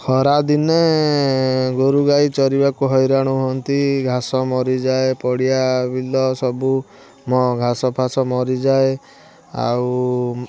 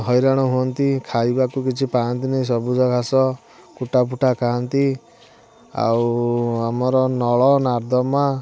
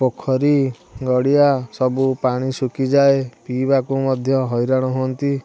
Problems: background sounds at intervals, continuous background conversations